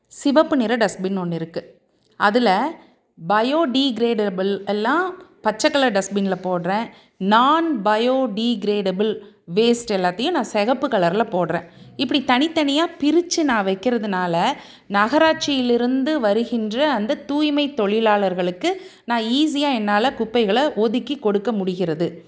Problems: none marked